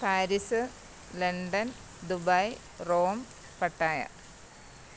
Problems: low volume